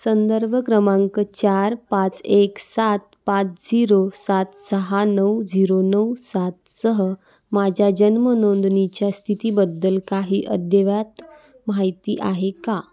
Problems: background conversations at intervals